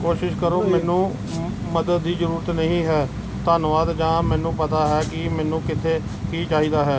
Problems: none marked